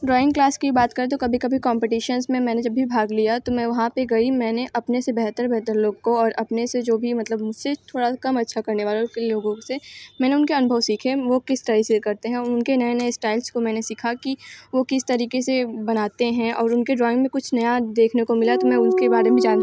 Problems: background sounds at intervals